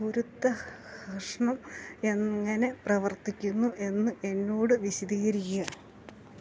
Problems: background sounds at intervals